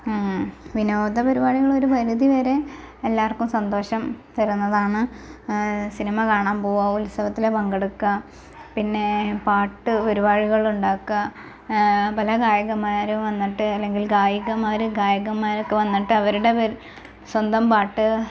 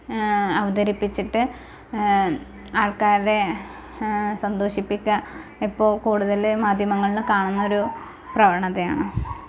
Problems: constant background noise, low volume